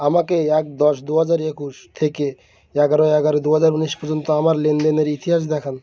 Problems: background sounds at intervals